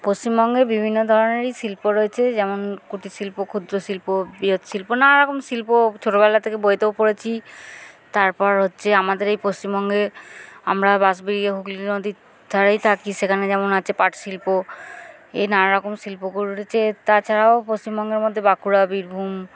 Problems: none marked